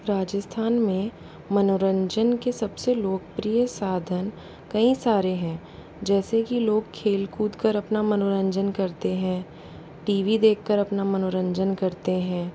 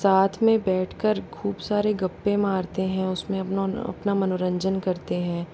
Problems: constant background noise